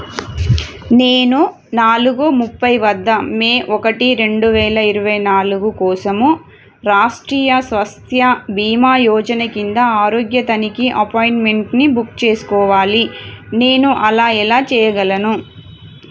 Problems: none marked